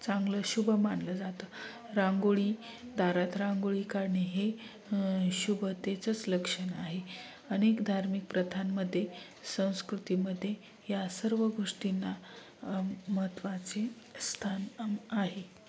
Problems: none marked